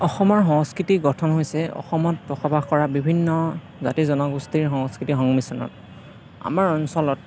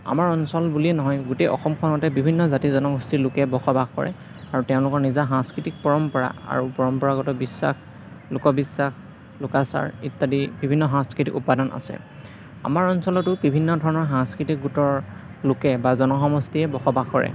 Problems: background sounds at intervals